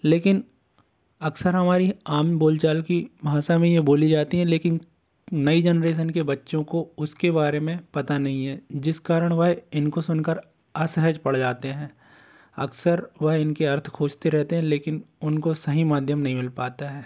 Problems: none marked